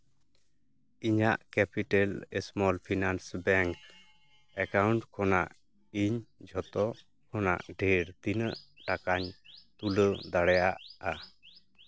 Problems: background conversations at intervals